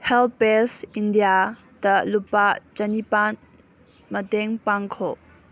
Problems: none marked